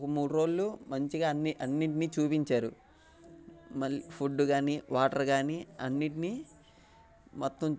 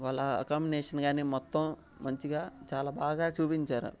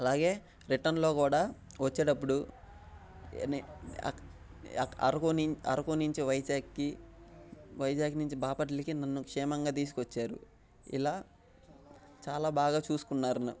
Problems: none marked